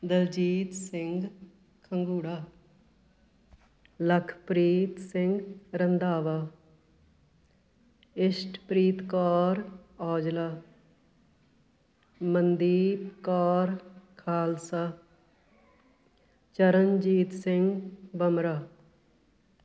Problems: background conversations at intervals